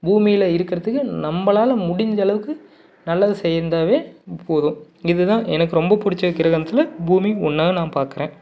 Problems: none marked